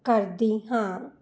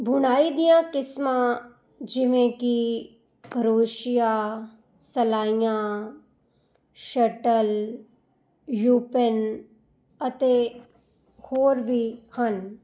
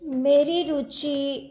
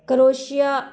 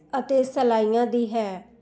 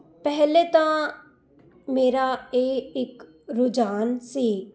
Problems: constant background noise